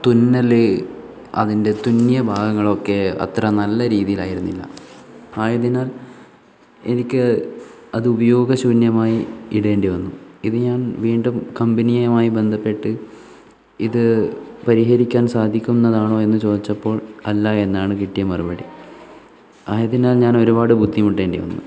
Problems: none marked